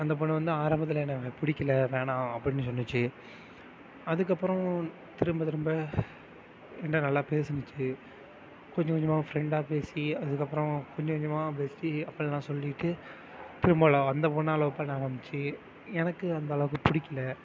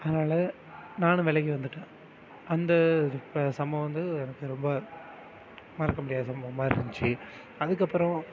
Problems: constant background noise, continuous background conversations